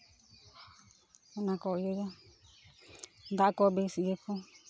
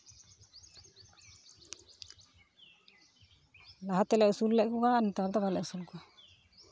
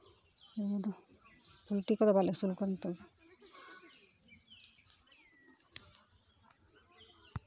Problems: constant background noise, continuous background conversations